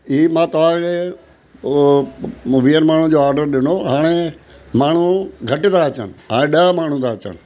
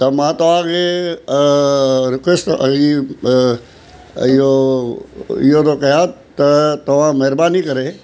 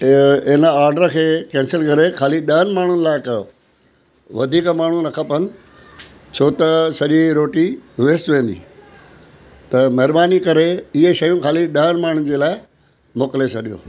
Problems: constant background noise